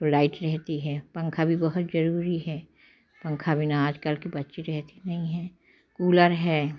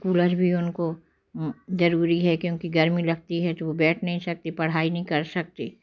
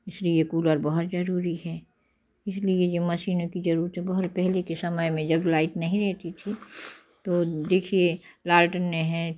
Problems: none marked